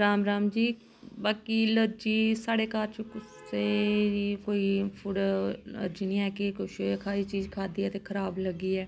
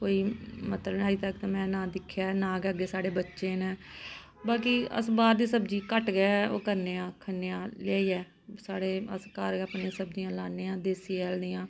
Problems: constant background noise